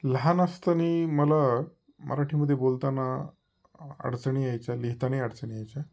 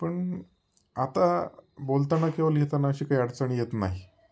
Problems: none marked